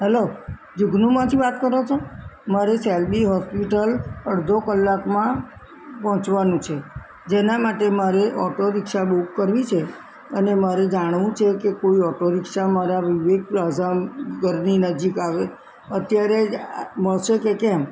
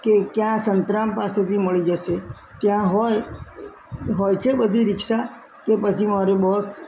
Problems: constant background noise